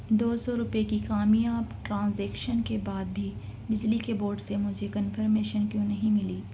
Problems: constant background noise